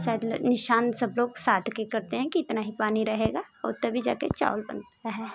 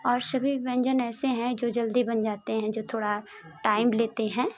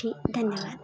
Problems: constant background noise